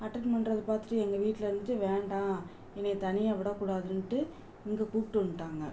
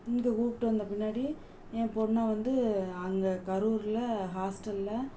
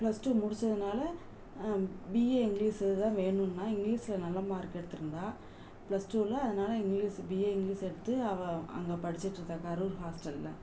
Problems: constant background noise, low volume